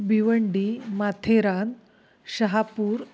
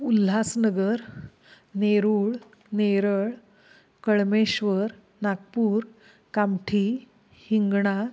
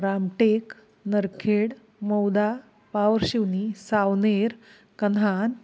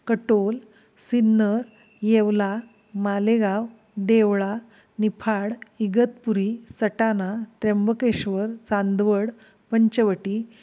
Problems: constant background noise, background conversations at intervals